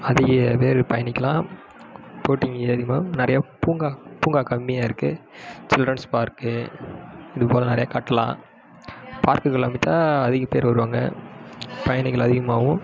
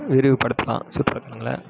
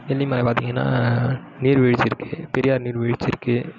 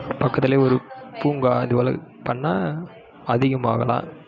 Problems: background sounds at intervals